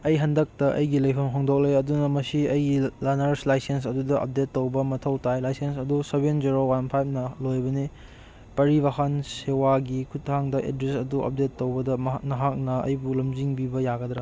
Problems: none marked